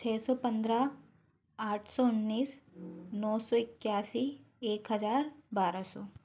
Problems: constant background noise